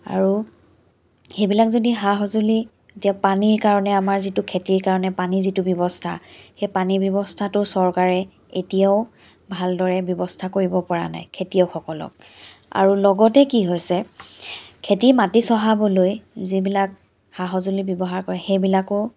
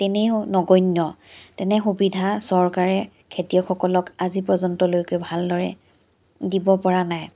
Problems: background sounds at intervals